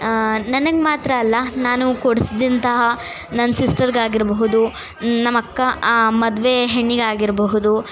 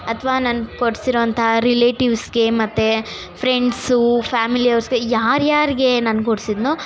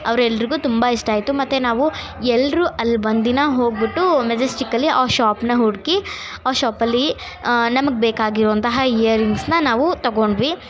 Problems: none marked